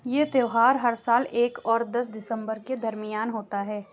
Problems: background sounds at intervals